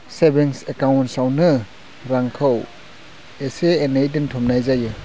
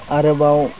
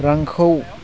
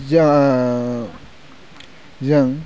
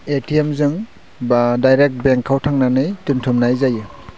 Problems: low volume